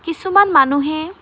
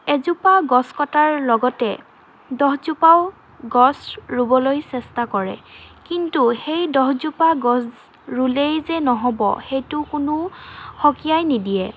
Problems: constant background noise